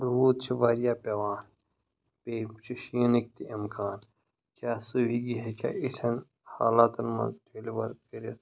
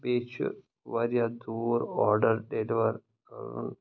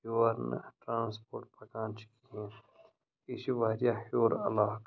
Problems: background sounds at intervals